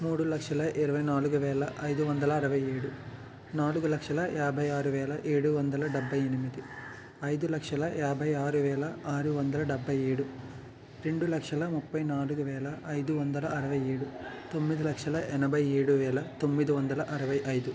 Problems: none marked